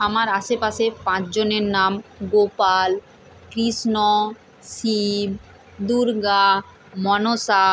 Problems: background sounds at intervals